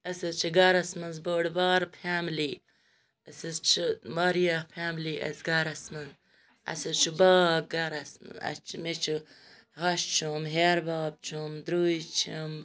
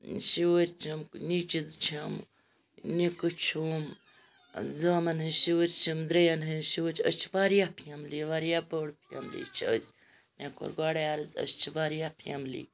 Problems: background sounds at intervals